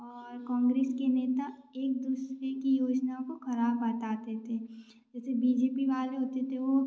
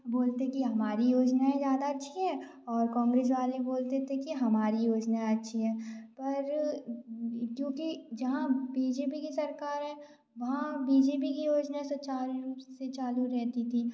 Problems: background sounds at intervals